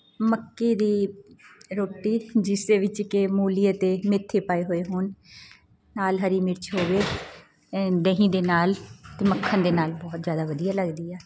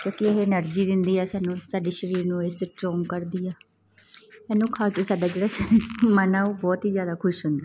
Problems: background sounds at intervals